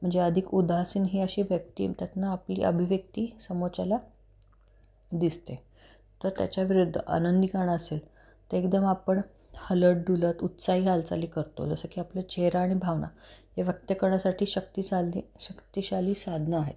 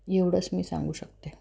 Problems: constant background noise